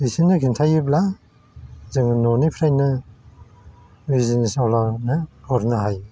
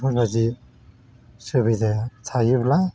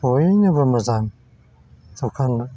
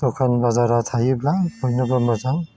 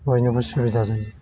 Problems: constant background noise